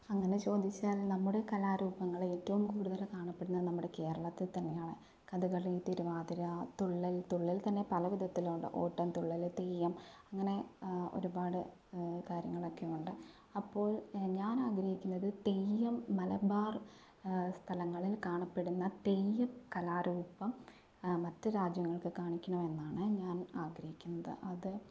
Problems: low volume